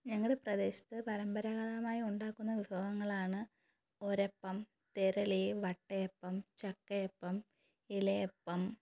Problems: low volume